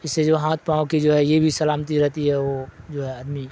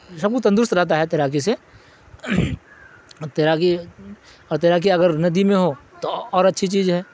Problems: constant background noise